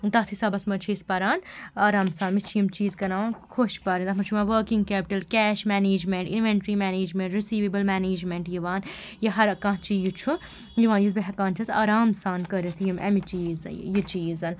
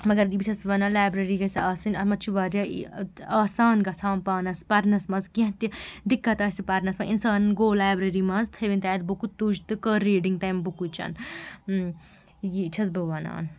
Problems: background sounds at intervals